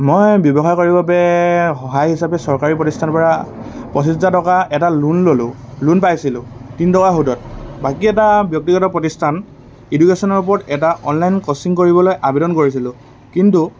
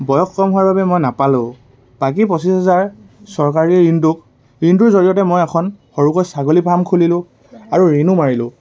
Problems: none marked